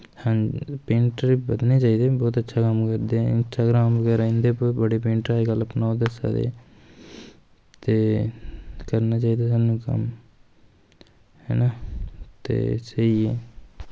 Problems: constant background noise